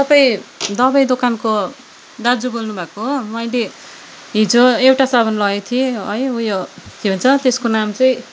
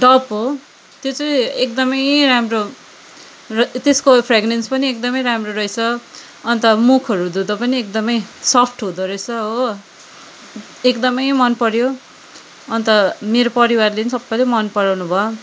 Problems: constant background noise